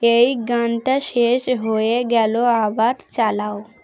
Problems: constant background noise, continuous background conversations